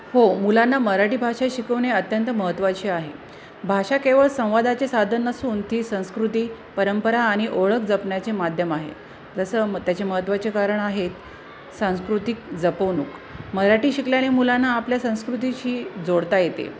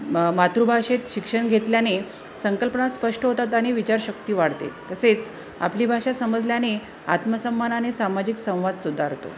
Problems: constant background noise, continuous background conversations